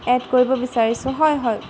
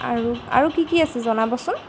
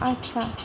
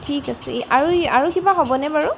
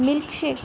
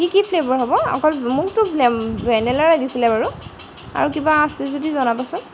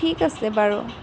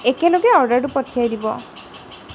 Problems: background sounds at intervals